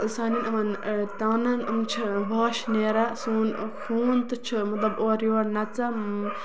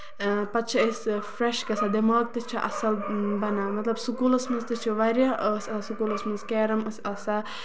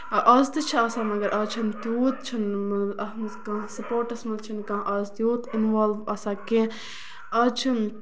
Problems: constant background noise